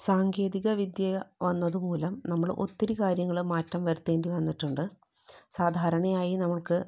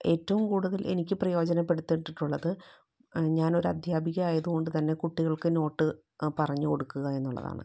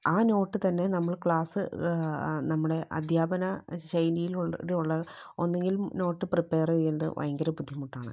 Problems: low volume